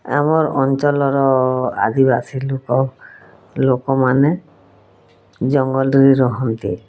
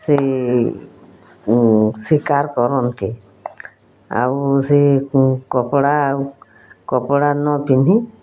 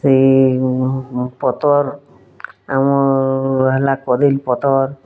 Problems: none marked